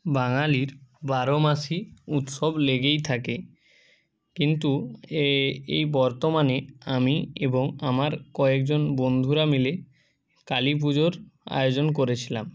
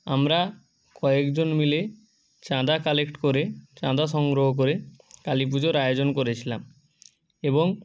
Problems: background sounds at intervals, continuous background conversations